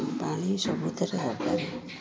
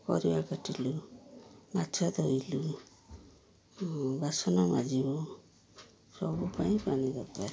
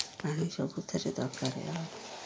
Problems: low volume